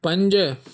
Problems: none marked